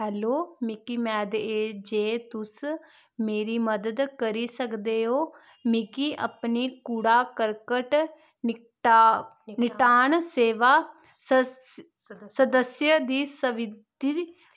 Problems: constant background noise